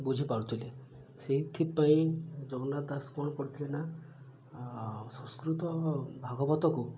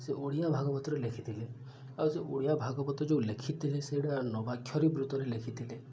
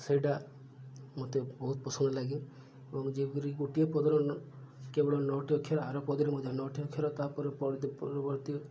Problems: low volume